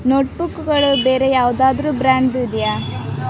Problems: constant background noise